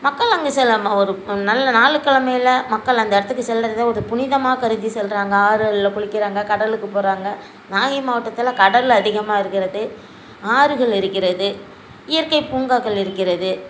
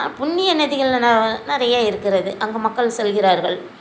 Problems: constant background noise